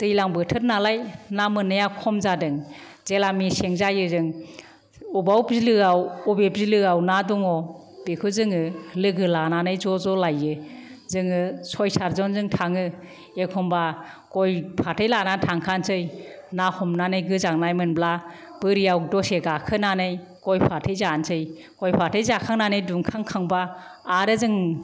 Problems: none marked